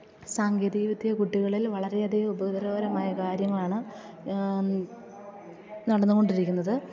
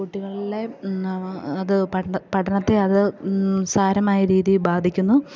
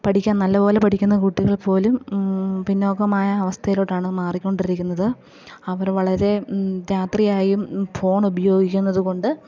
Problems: low volume